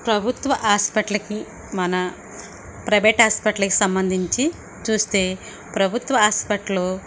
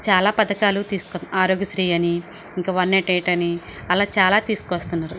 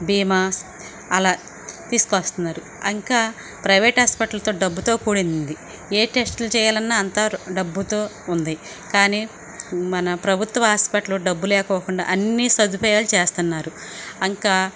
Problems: constant background noise